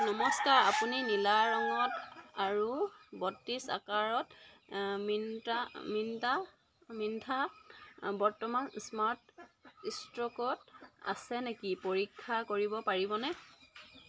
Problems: none marked